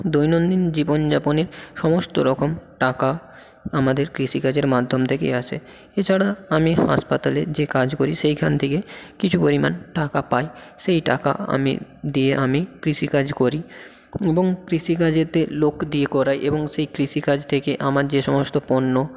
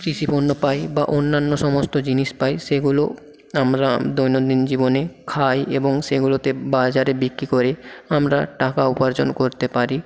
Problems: constant background noise